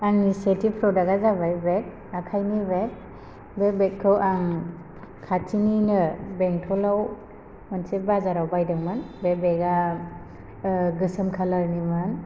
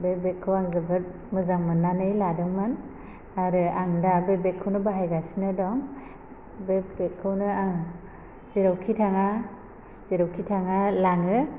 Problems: constant background noise